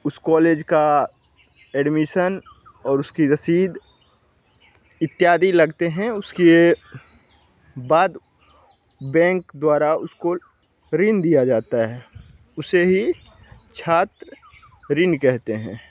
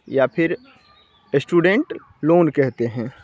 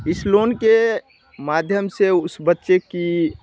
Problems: none marked